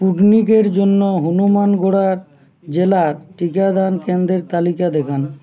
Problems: constant background noise